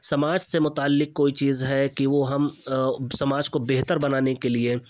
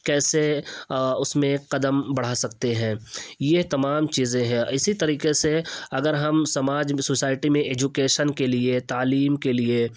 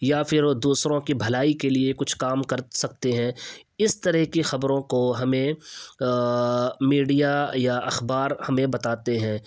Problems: none marked